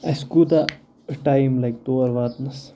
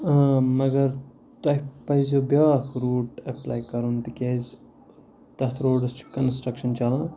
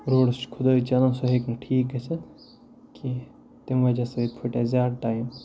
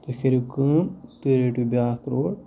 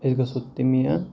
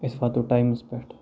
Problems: background sounds at intervals, low volume